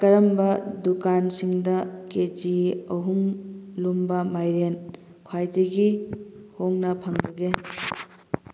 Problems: constant background noise